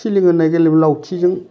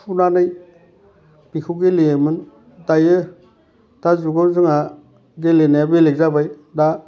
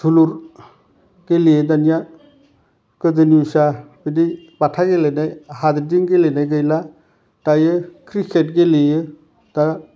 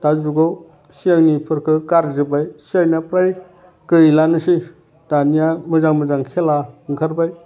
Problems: constant background noise